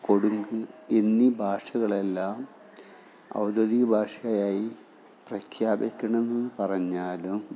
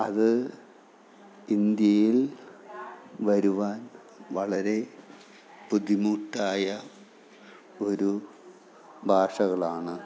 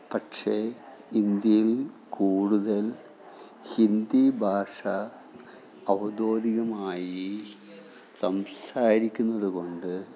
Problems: background sounds at intervals, background conversations at intervals